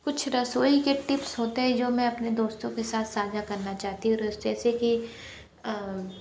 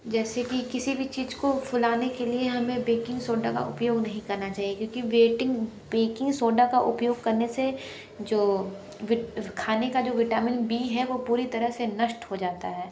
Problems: background conversations at intervals